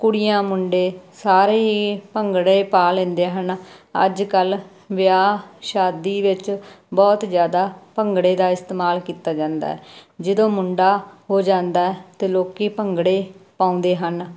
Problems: constant background noise